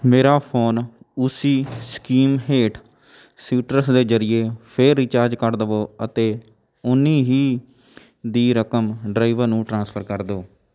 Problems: none marked